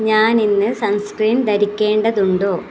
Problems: none marked